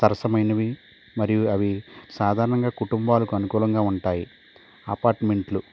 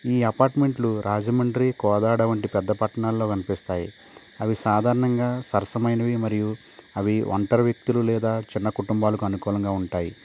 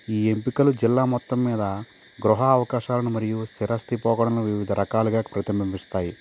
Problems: none marked